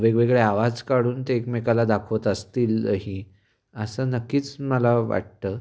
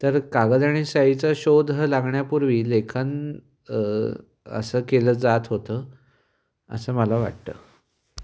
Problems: background sounds at intervals, echo